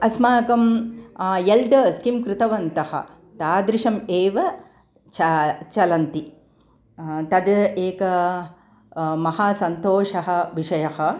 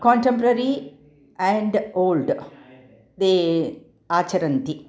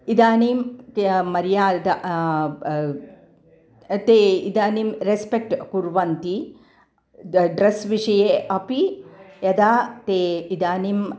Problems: none marked